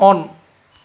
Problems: none marked